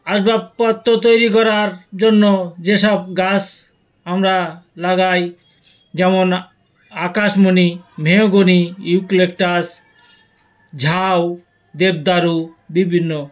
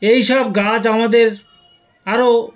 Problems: none marked